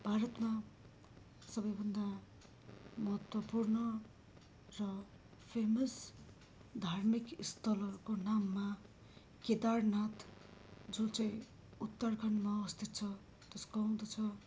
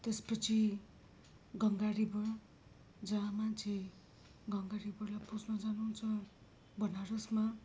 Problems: background sounds at intervals